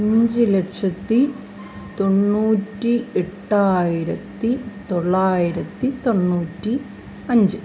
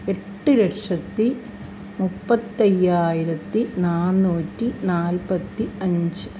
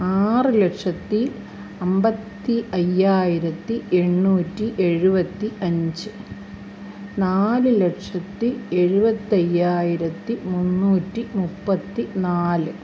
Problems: constant background noise